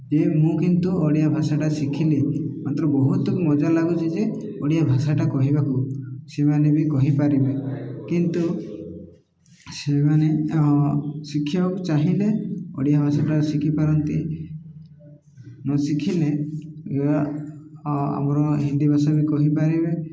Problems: none marked